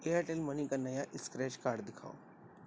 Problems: constant background noise, low volume